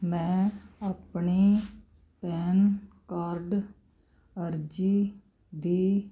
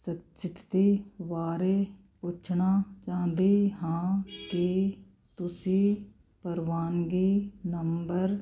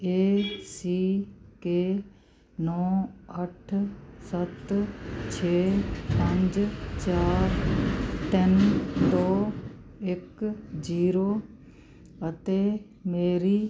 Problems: constant background noise